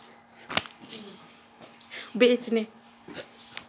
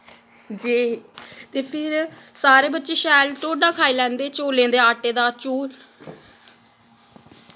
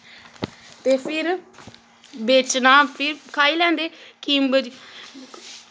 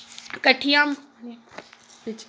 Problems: background sounds at intervals